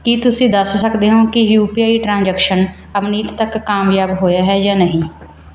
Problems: none marked